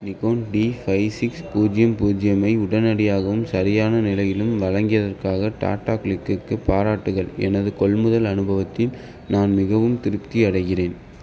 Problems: none marked